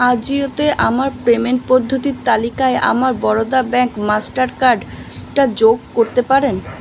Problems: constant background noise